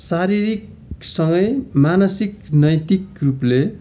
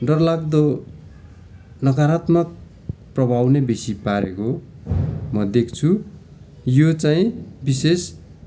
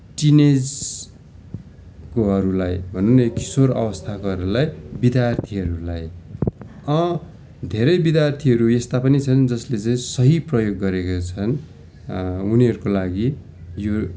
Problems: constant background noise, continuous background conversations